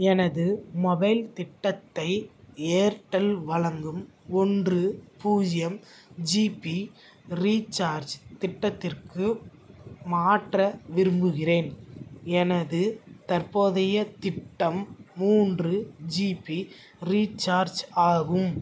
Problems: none marked